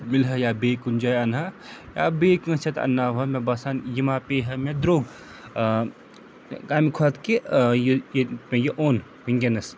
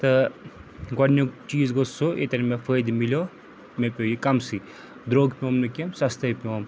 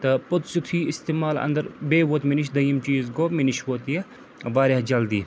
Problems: constant background noise